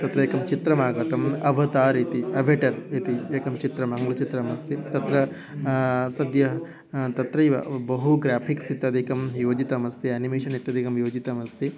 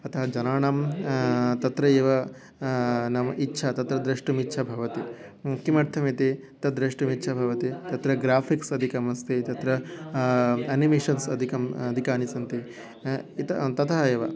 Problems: background sounds at intervals